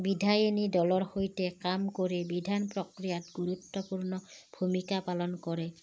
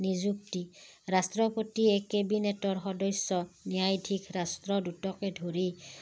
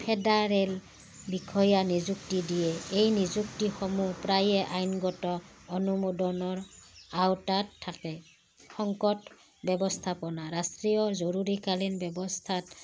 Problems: background sounds at intervals